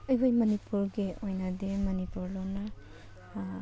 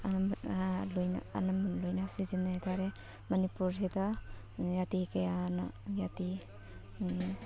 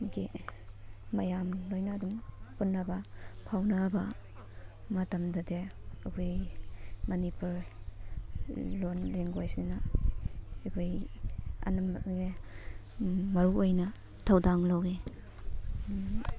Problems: background sounds at intervals, background conversations at intervals